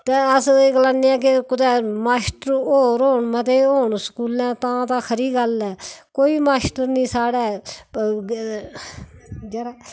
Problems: background sounds at intervals